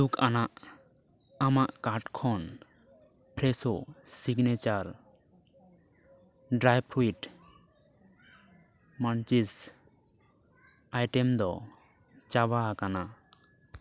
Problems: background conversations at intervals